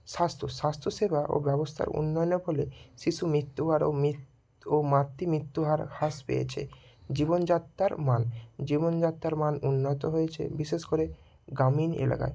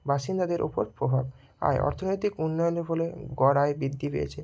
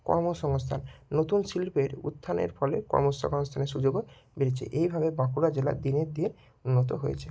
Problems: none marked